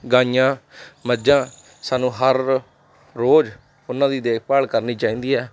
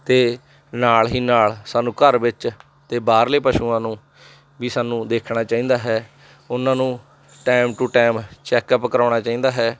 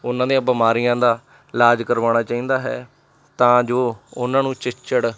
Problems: none marked